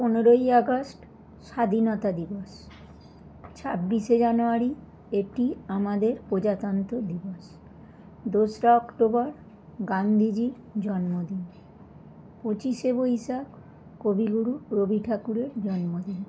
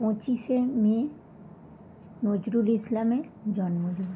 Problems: none marked